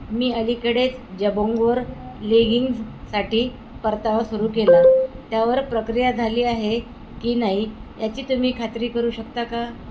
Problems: constant background noise